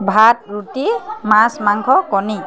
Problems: constant background noise